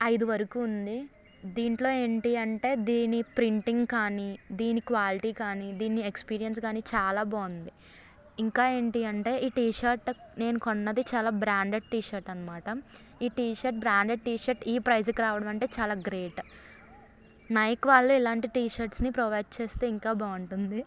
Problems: none marked